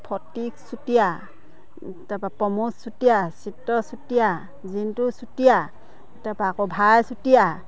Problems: constant background noise